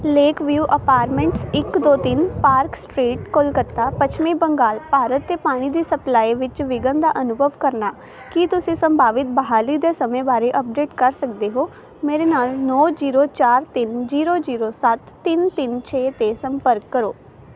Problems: constant background noise